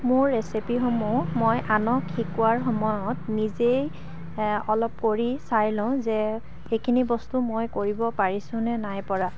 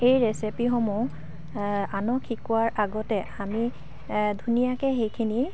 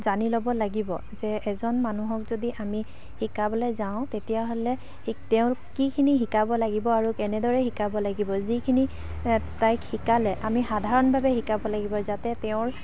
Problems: constant background noise, background conversations at intervals, low volume